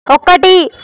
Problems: constant background noise